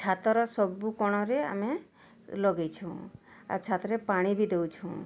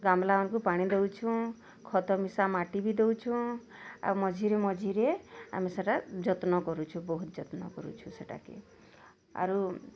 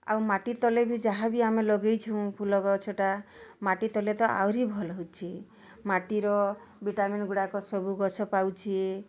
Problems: none marked